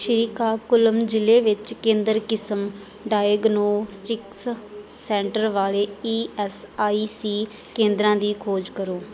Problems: background conversations at intervals